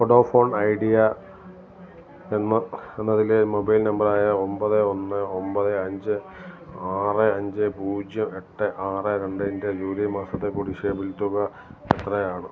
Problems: low volume